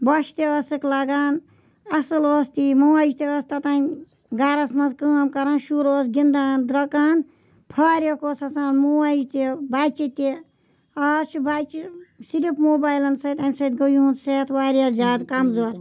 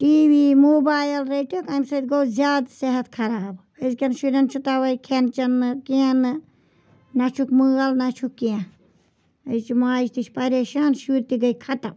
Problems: background sounds at intervals